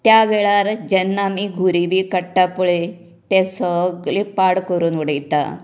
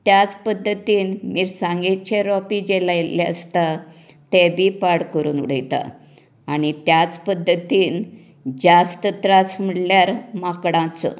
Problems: none marked